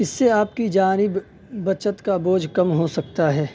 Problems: none marked